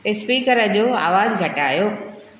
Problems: constant background noise, echo